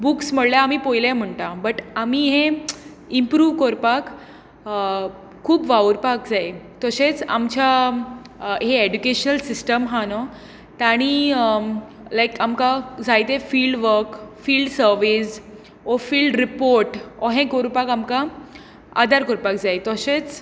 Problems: background sounds at intervals